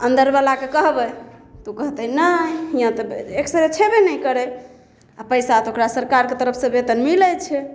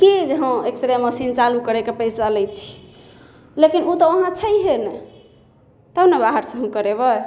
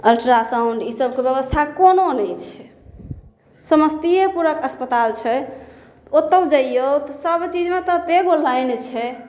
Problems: none marked